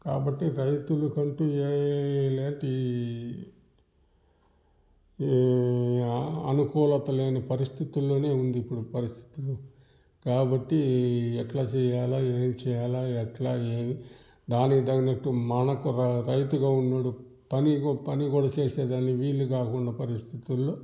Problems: background sounds at intervals, background conversations at intervals